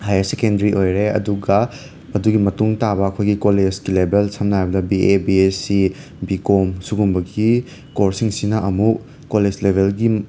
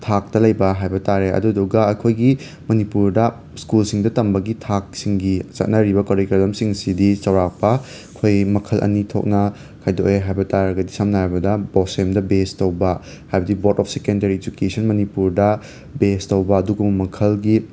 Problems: background sounds at intervals